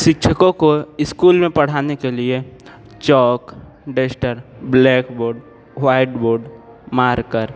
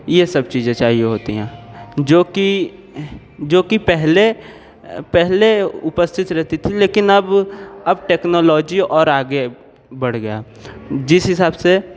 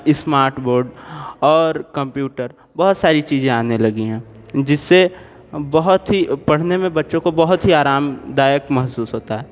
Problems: none marked